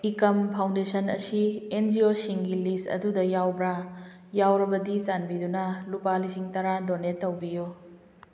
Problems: none marked